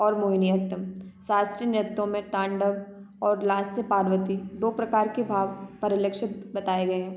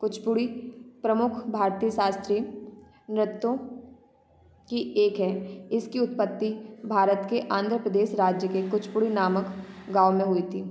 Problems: none marked